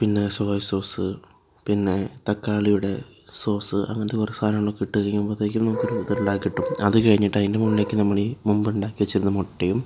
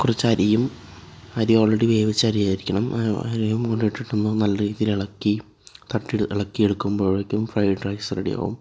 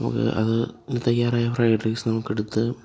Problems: background sounds at intervals